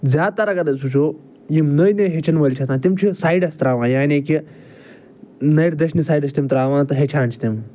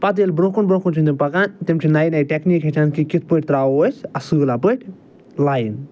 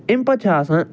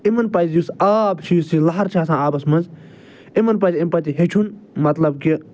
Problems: none marked